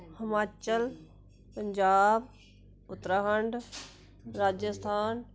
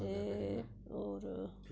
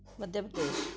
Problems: constant background noise